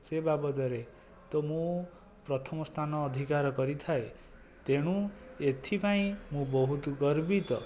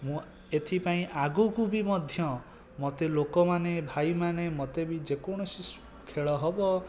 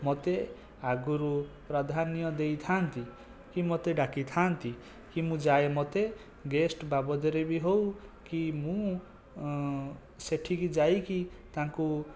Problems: background sounds at intervals, low volume